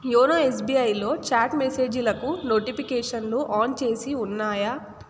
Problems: constant background noise